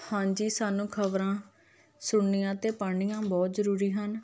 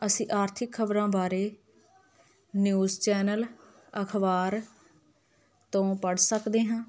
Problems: continuous background conversations